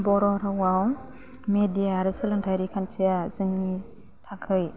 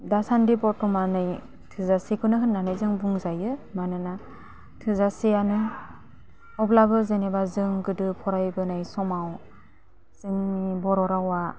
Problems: constant background noise